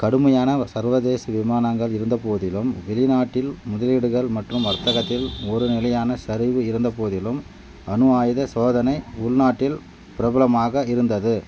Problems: background sounds at intervals